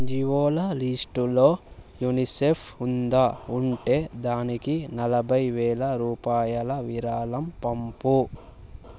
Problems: none marked